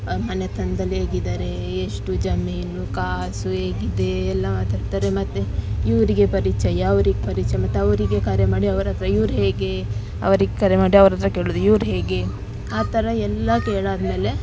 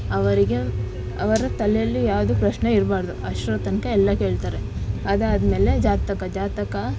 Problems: constant background noise